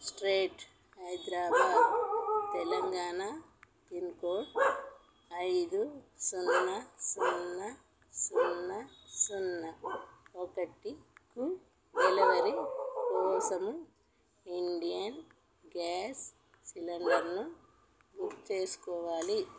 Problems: background sounds at intervals, low volume